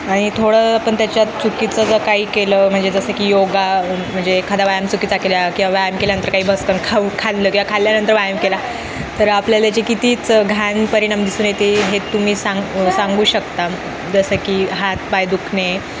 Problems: constant background noise, continuous background conversations